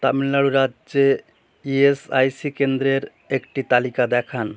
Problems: background sounds at intervals